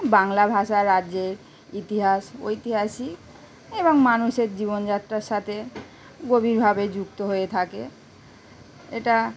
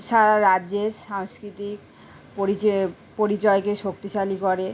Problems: none marked